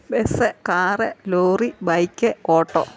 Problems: none marked